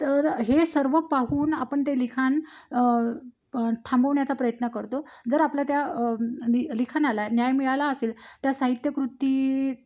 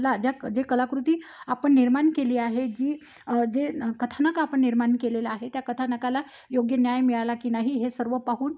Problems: none marked